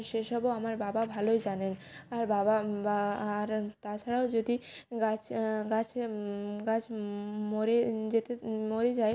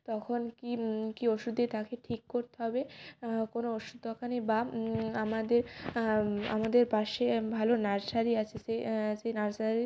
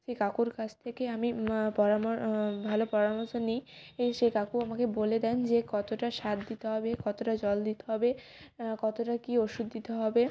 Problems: background sounds at intervals